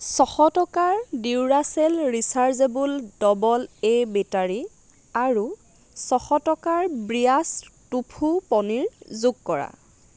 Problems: constant background noise